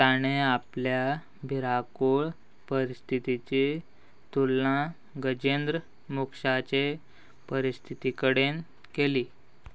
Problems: none marked